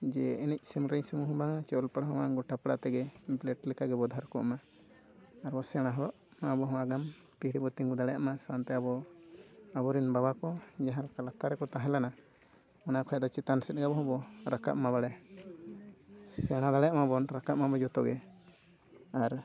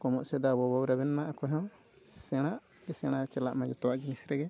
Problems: constant background noise, low volume